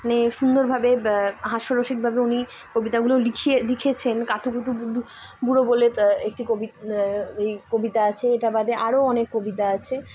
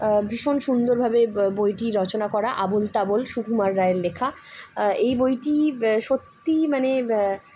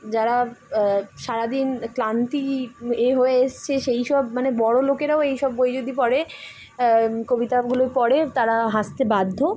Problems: none marked